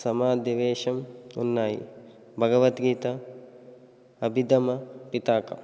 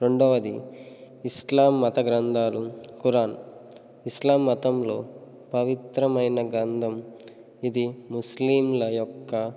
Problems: none marked